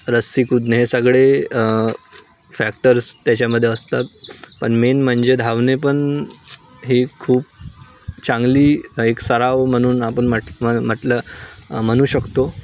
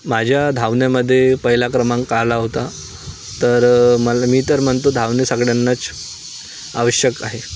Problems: none marked